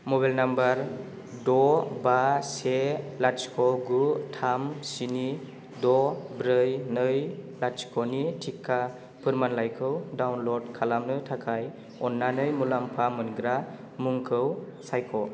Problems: constant background noise